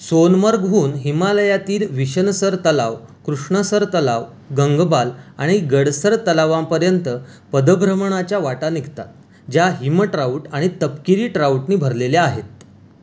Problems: constant background noise